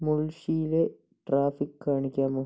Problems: low volume